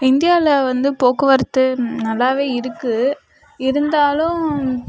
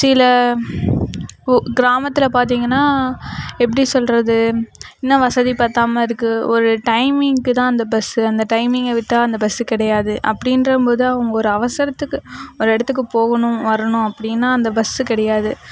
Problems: background conversations at intervals